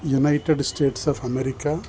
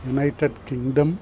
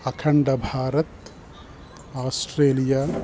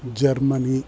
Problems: constant background noise